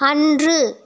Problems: none marked